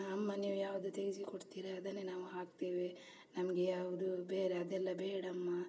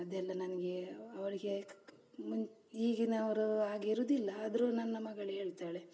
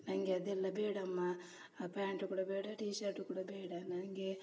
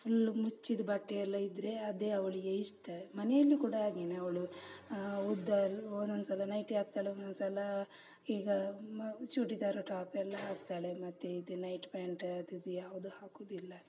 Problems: none marked